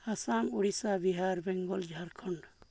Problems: low volume